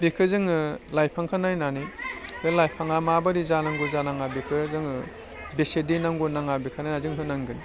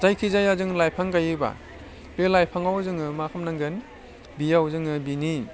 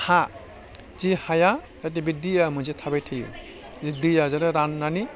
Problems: none marked